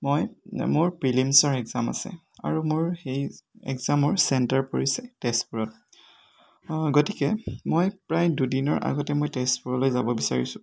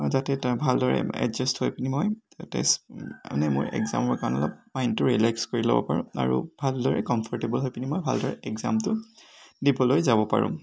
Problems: none marked